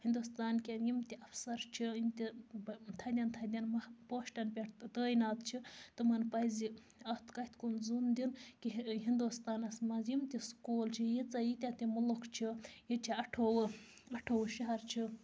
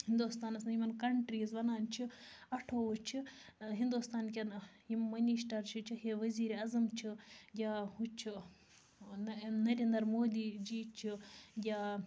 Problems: none marked